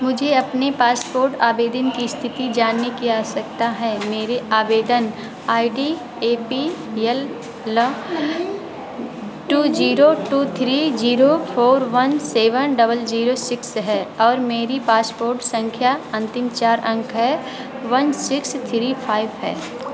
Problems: constant background noise, continuous background conversations